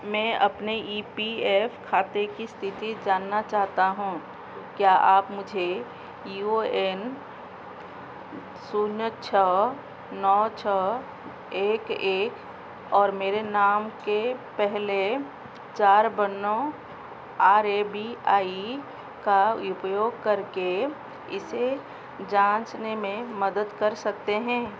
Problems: none marked